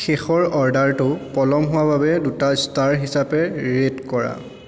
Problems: constant background noise, background conversations at intervals, echo